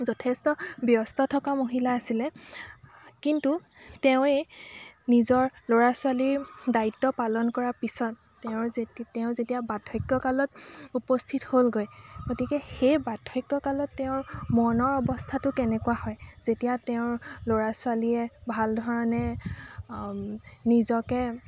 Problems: constant background noise, background conversations at intervals